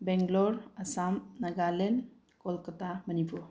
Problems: low volume